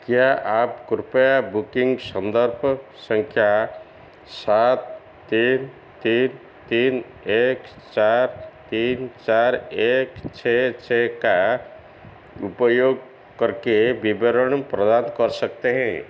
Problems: constant background noise